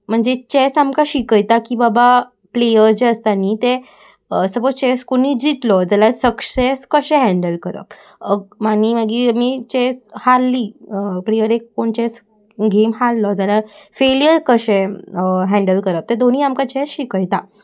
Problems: constant background noise